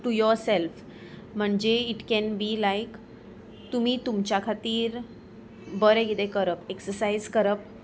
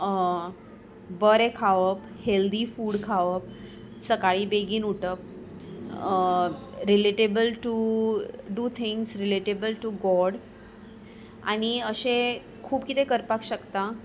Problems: background sounds at intervals